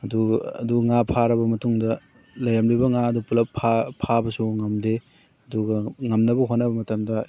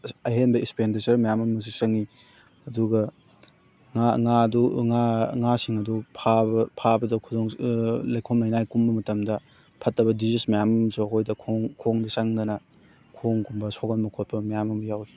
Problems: background sounds at intervals